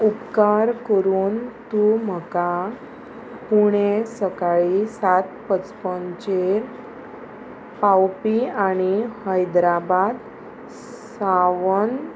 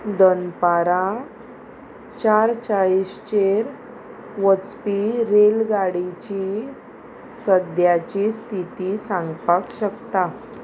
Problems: constant background noise